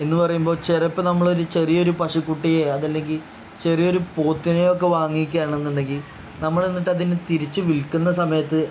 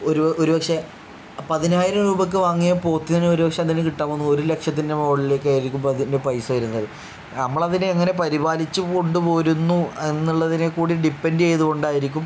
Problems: none marked